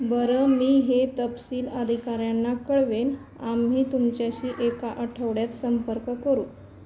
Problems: none marked